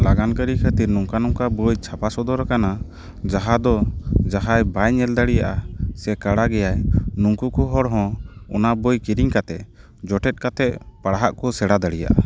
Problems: background sounds at intervals